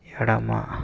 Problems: constant background noise